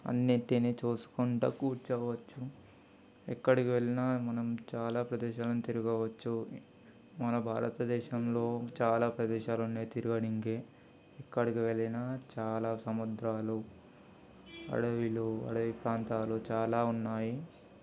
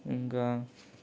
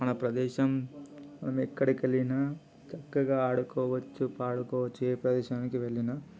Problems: constant background noise, background conversations at intervals